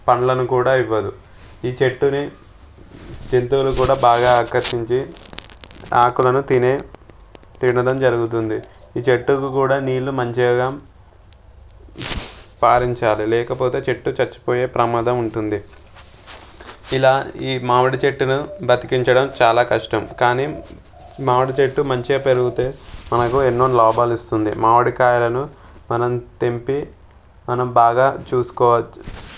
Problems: background sounds at intervals